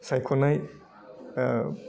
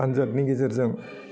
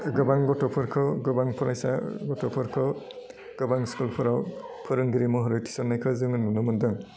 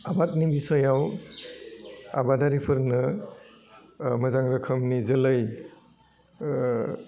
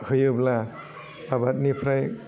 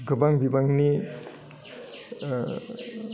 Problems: none marked